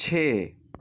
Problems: none marked